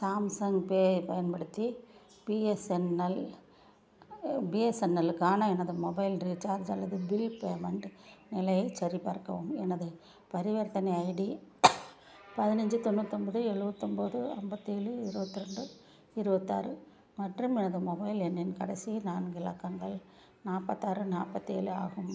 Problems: low volume